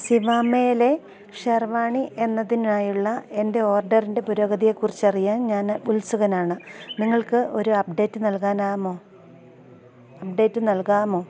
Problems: constant background noise, low volume